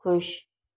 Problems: none marked